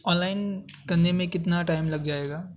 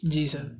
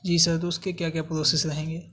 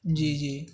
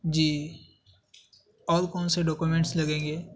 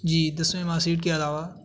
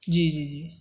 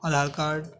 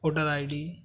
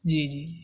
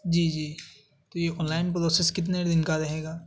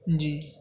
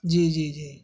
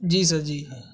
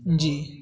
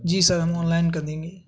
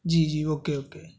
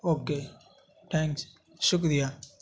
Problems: constant background noise